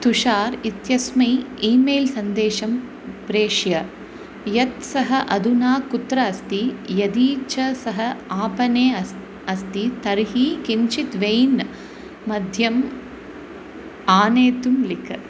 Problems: constant background noise